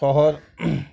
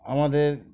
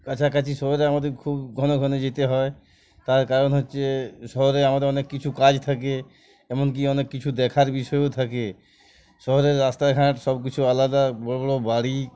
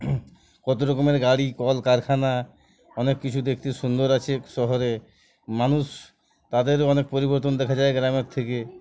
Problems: constant background noise, background conversations at intervals